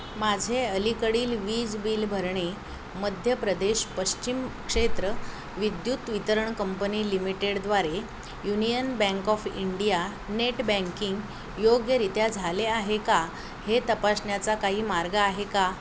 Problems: none marked